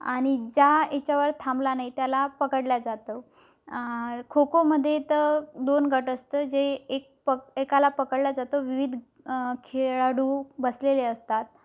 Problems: none marked